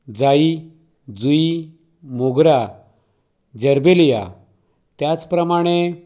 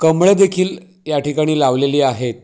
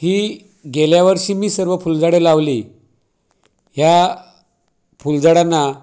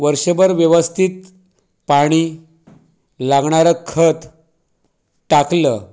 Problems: background sounds at intervals